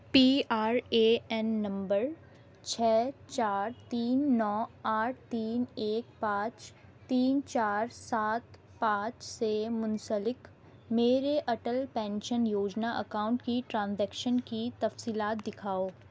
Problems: constant background noise